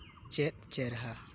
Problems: constant background noise